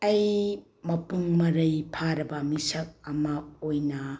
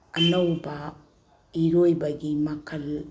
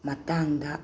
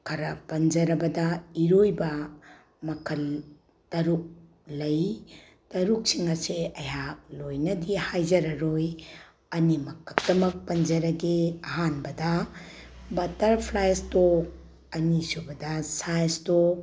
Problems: low volume